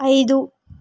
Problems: none marked